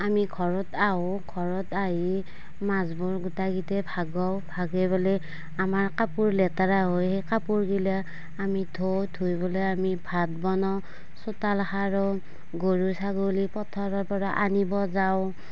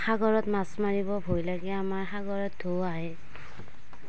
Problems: none marked